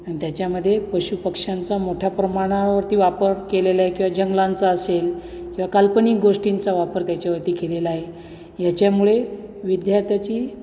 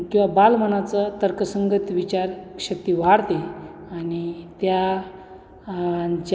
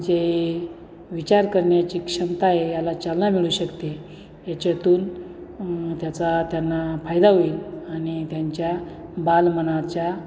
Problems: constant background noise